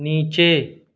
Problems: none marked